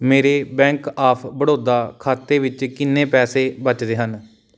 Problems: background sounds at intervals